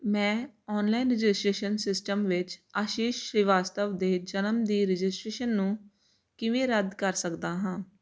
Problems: constant background noise